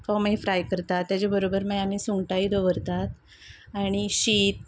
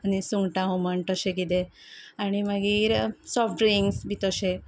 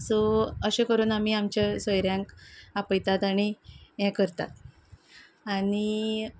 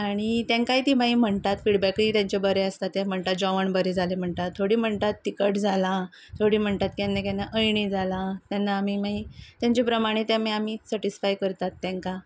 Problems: none marked